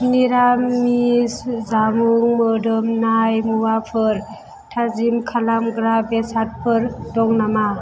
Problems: none marked